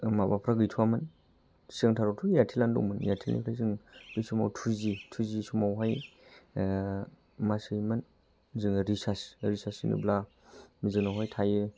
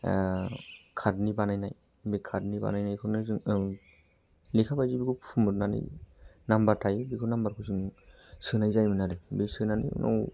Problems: low volume